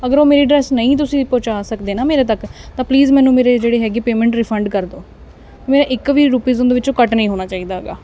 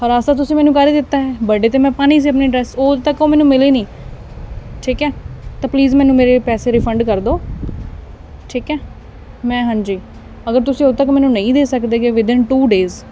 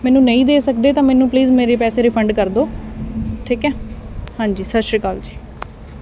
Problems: none marked